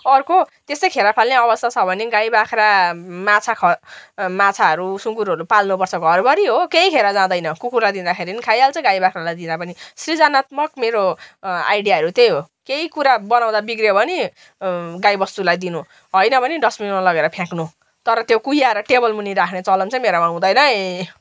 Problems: background sounds at intervals